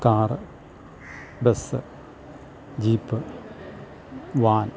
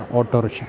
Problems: background sounds at intervals